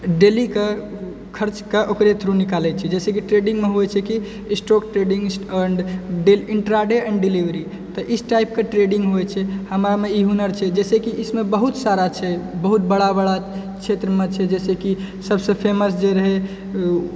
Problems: none marked